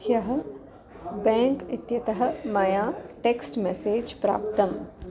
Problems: constant background noise, continuous background conversations